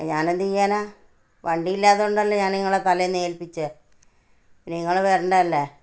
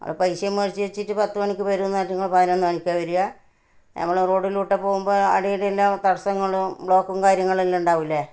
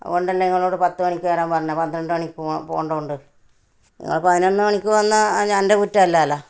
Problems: none marked